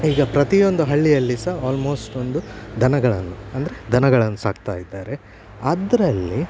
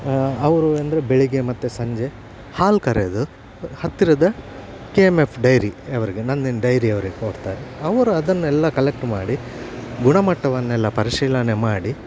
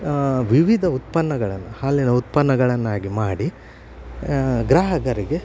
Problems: constant background noise